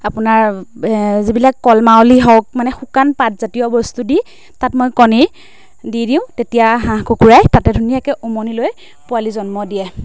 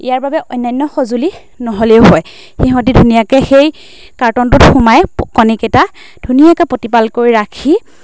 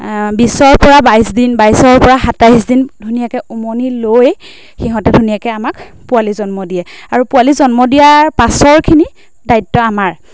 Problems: constant background noise